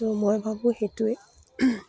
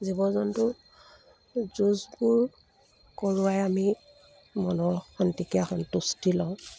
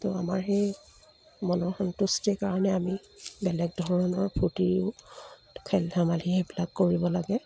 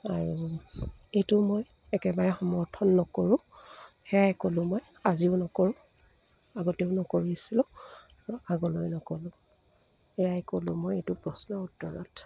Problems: none marked